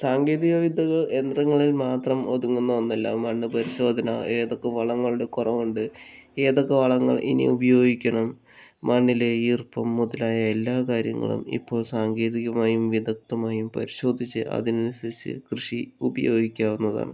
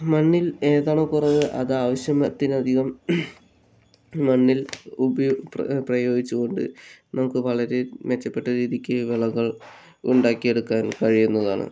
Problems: none marked